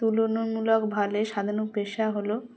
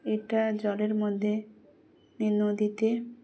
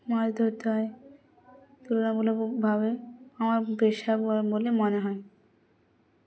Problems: constant background noise, continuous background conversations